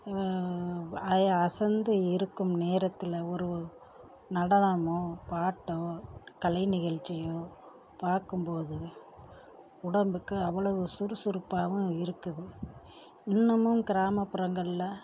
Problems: low volume